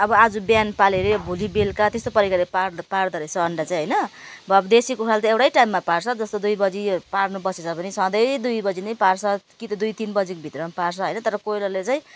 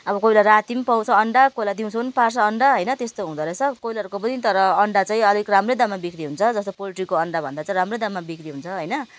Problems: none marked